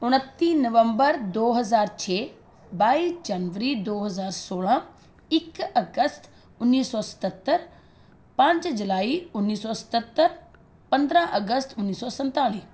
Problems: constant background noise